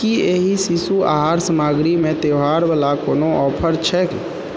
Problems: echo